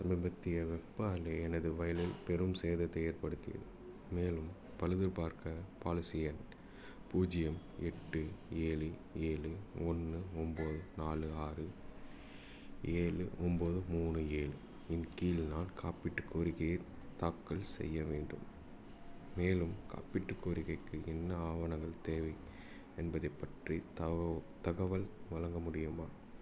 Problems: none marked